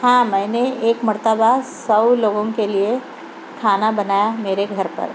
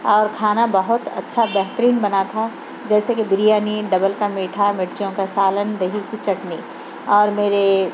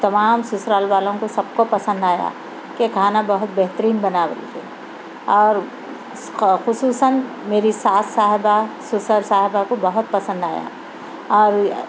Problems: constant background noise